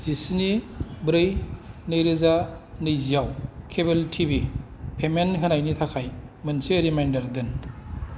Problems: none marked